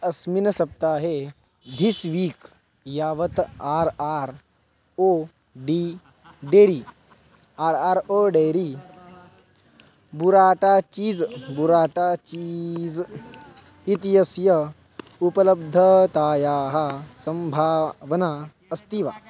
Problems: background sounds at intervals